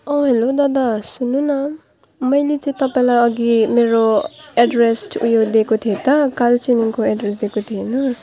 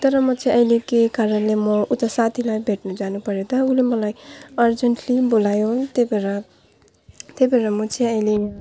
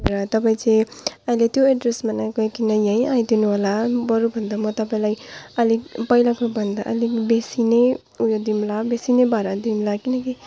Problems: background sounds at intervals, low volume